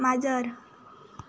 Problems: none marked